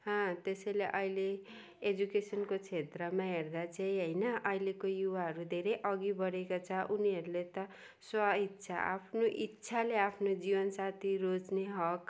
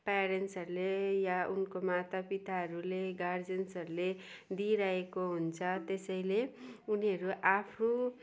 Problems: none marked